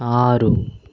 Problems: constant background noise